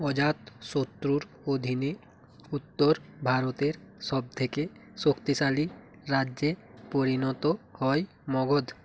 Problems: constant background noise